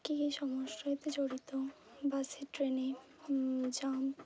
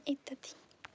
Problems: low volume